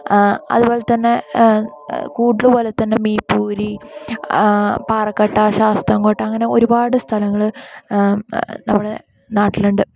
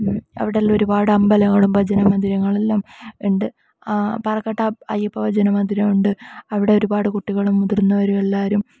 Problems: low volume